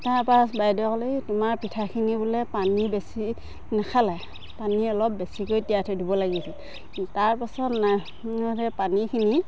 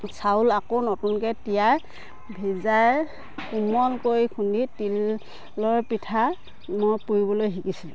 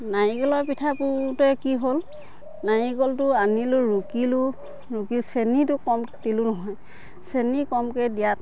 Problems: constant background noise, background conversations at intervals